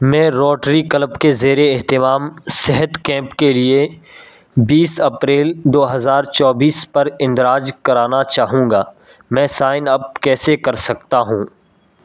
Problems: none marked